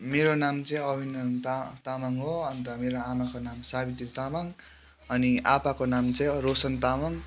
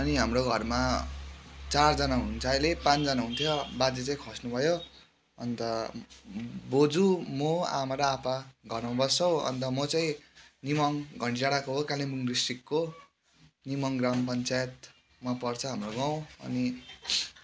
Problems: background sounds at intervals